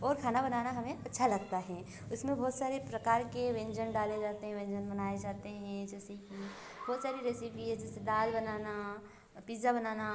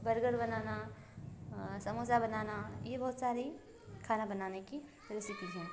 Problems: none marked